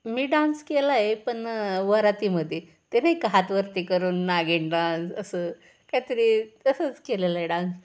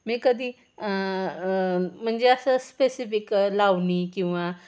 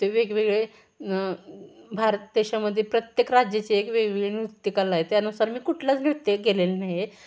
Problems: background sounds at intervals